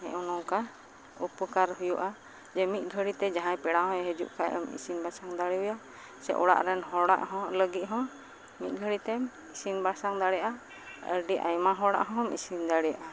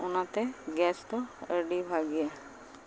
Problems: none marked